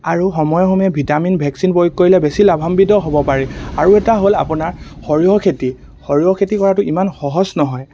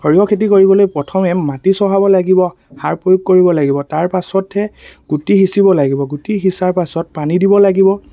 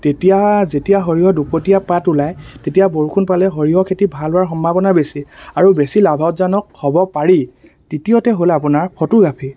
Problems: constant background noise